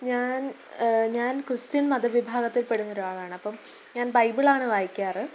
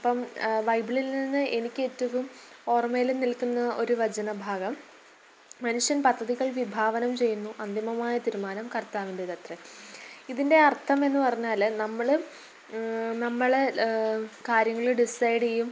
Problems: background sounds at intervals